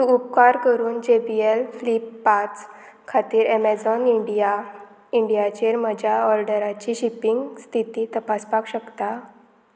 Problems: constant background noise